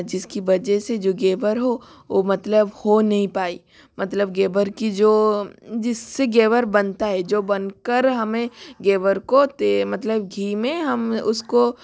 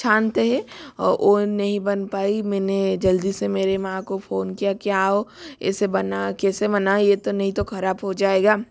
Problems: constant background noise